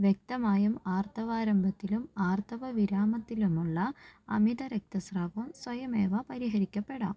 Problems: low volume